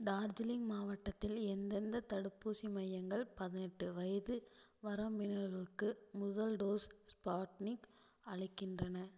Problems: low volume